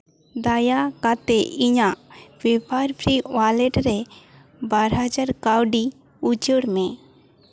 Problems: none marked